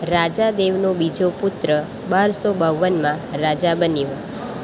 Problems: constant background noise